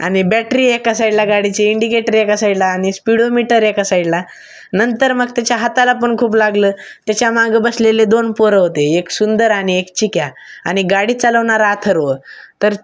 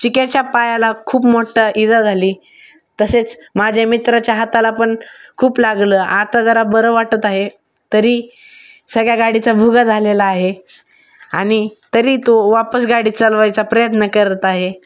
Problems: none marked